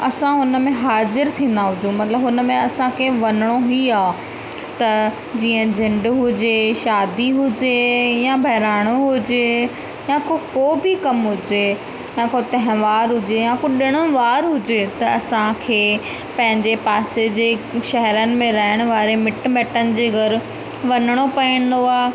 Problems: constant background noise, echo